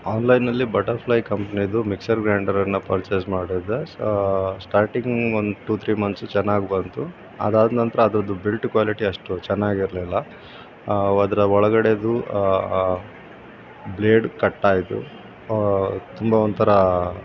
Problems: constant background noise